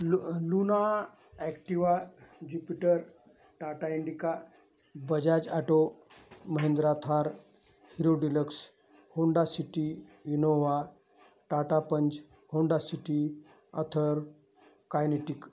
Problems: none marked